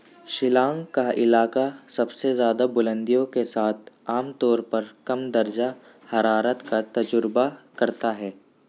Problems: constant background noise